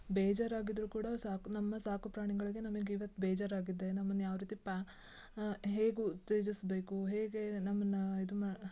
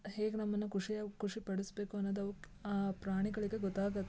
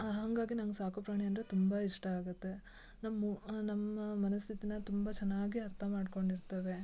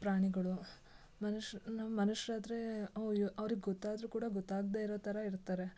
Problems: none marked